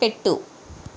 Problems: none marked